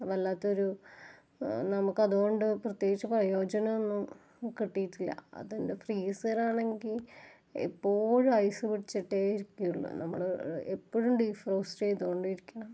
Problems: low volume